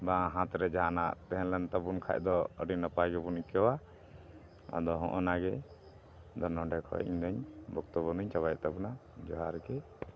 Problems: constant background noise